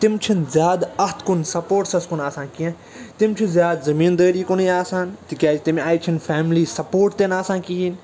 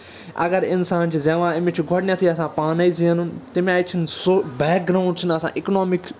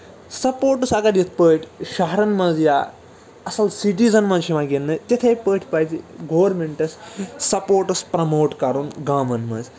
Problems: constant background noise, continuous background conversations